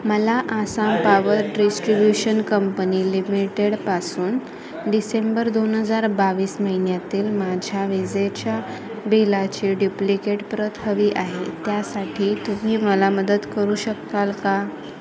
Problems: constant background noise, continuous background conversations